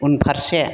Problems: background sounds at intervals